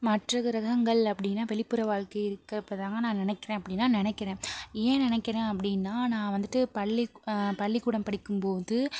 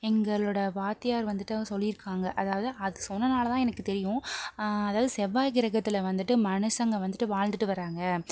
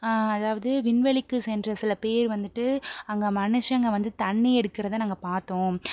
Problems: none marked